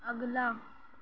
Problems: background sounds at intervals, low volume